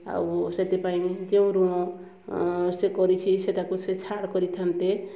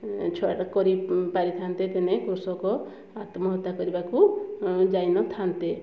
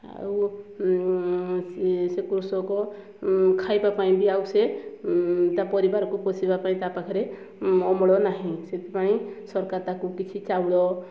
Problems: low volume